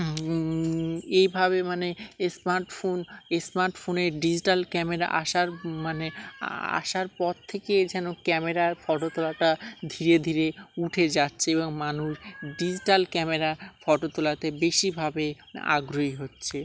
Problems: constant background noise, background conversations at intervals